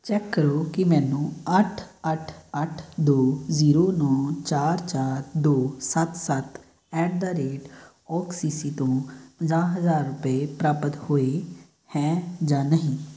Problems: background sounds at intervals